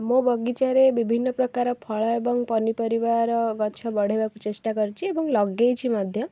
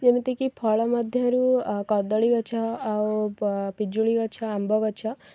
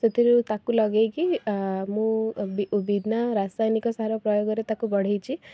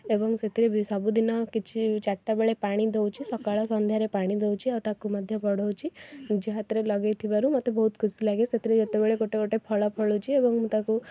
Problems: background sounds at intervals, background conversations at intervals